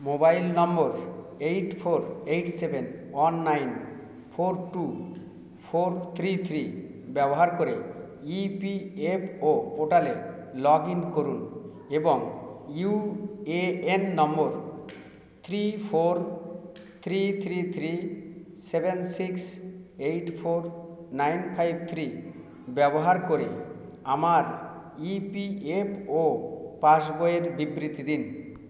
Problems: none marked